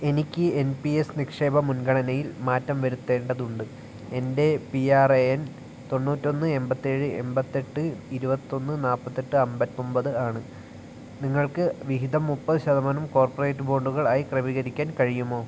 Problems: none marked